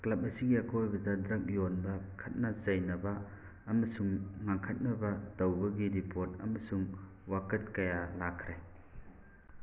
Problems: constant background noise